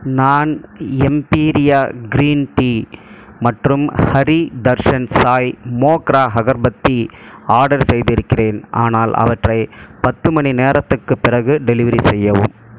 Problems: constant background noise